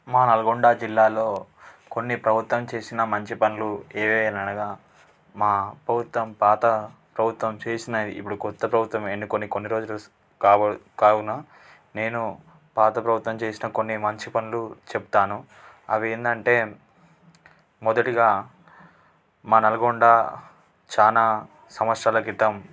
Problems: constant background noise